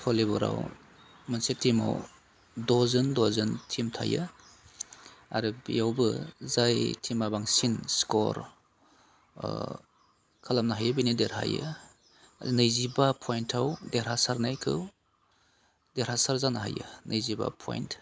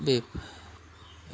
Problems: constant background noise